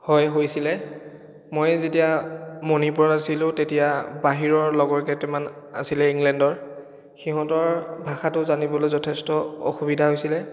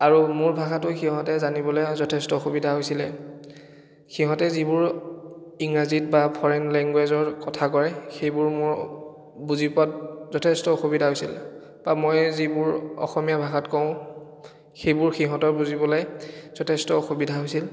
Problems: echo